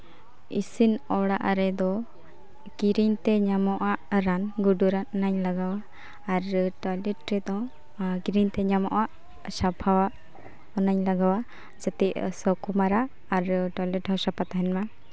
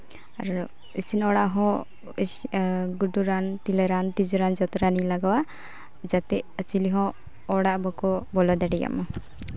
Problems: none marked